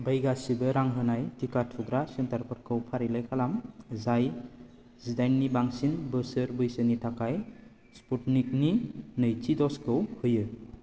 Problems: none marked